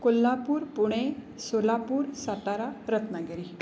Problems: none marked